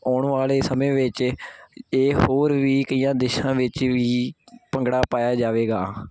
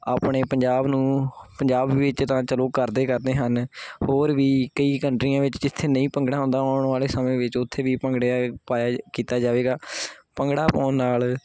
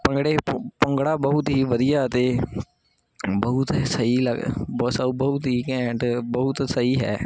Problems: constant background noise